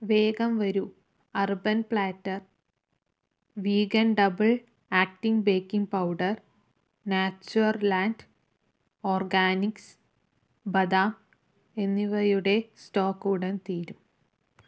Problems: none marked